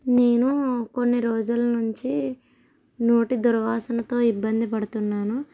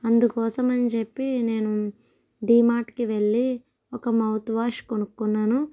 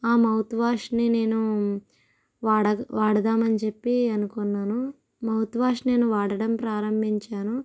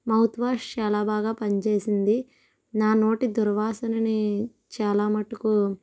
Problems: none marked